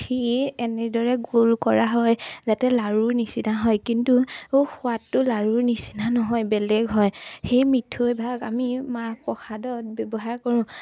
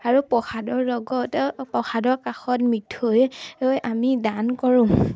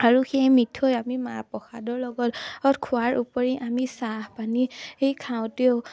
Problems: none marked